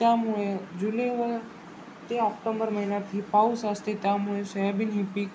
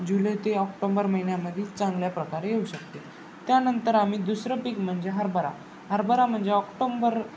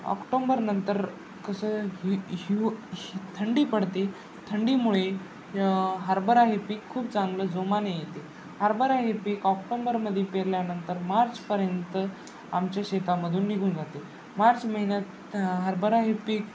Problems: constant background noise